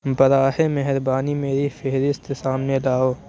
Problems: constant background noise